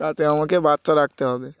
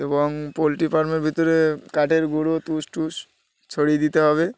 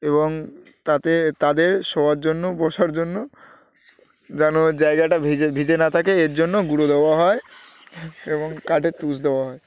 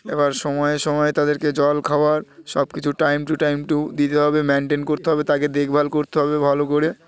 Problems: none marked